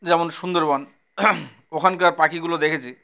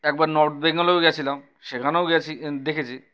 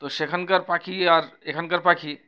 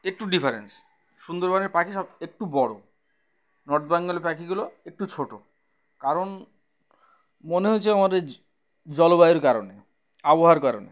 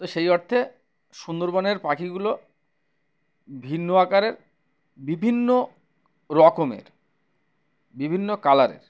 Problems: background sounds at intervals